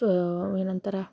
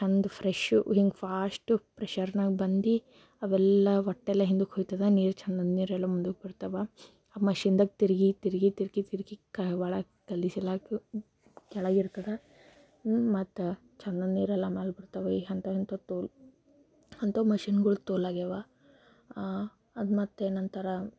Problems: none marked